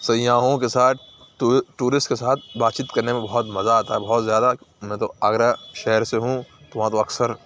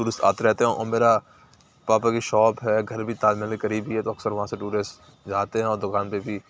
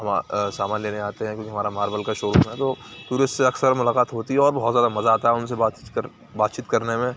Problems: none marked